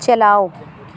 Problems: constant background noise